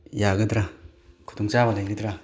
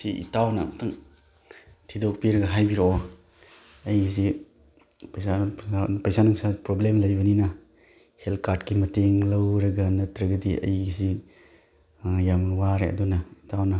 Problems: none marked